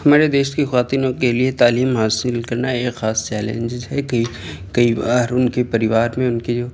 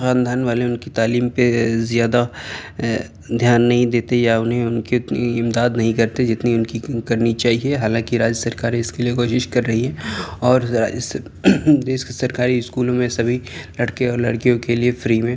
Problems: constant background noise, background conversations at intervals